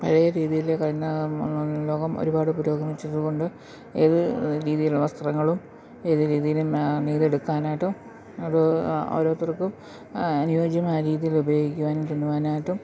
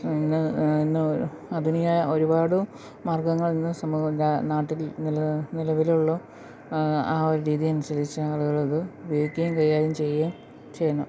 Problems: background sounds at intervals